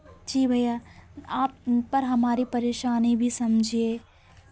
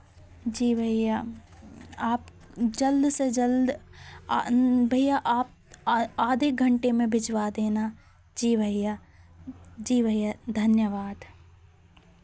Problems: constant background noise, continuous background conversations